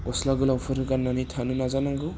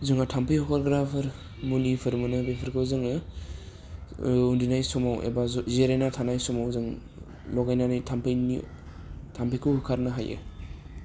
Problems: low volume